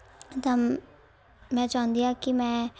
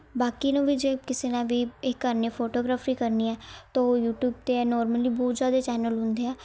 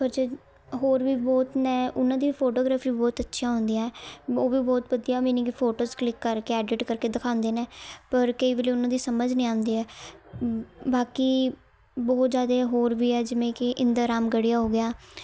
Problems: background sounds at intervals, continuous background conversations